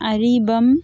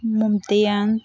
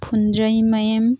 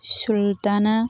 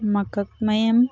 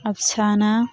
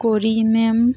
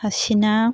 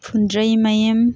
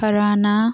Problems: constant background noise